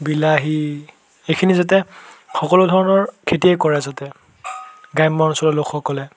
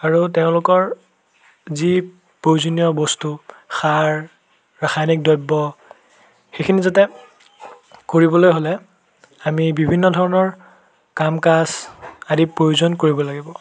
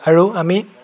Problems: constant background noise